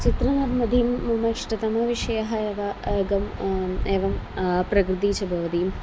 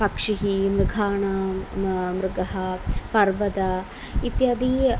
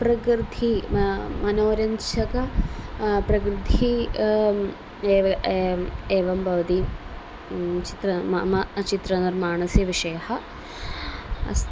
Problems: none marked